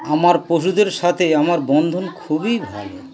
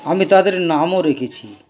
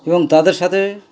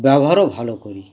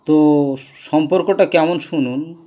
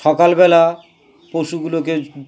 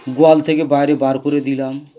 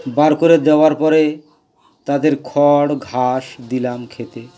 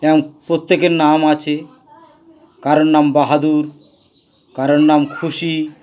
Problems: constant background noise, continuous background conversations